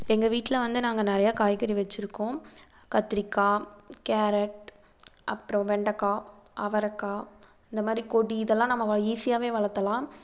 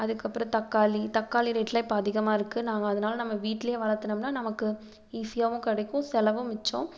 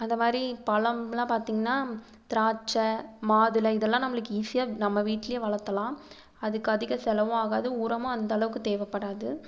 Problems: none marked